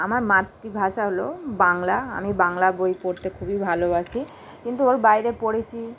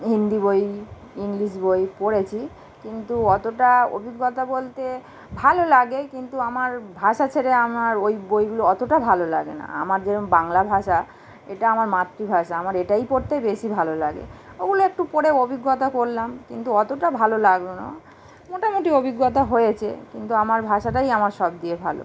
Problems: constant background noise